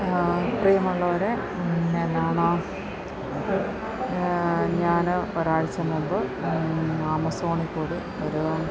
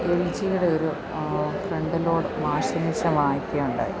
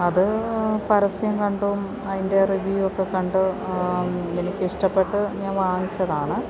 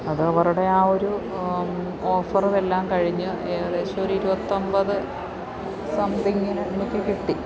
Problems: constant background noise